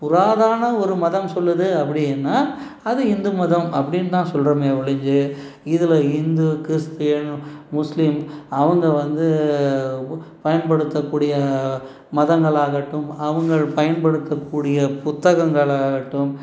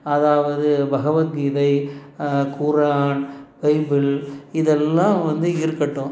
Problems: none marked